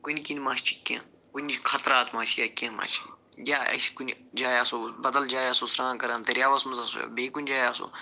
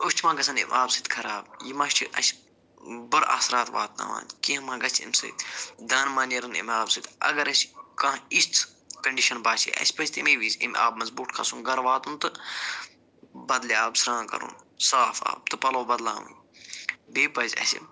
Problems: none marked